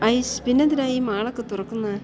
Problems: low volume